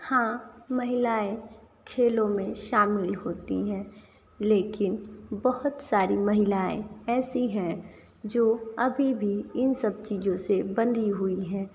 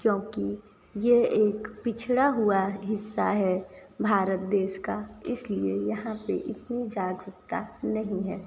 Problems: none marked